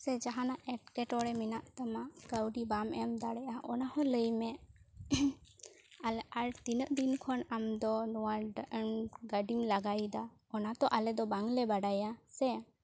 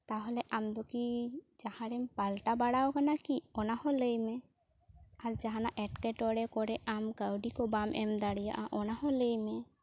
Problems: low volume